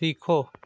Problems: none marked